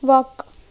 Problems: constant background noise